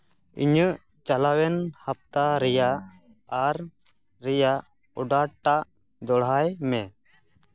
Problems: background sounds at intervals